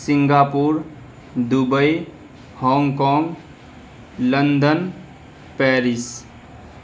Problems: constant background noise